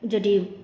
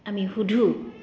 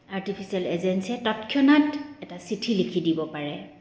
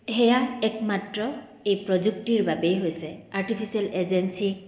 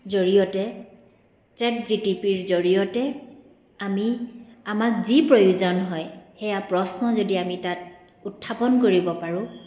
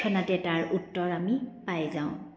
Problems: background sounds at intervals